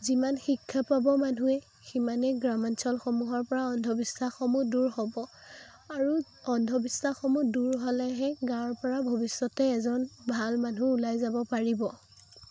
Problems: constant background noise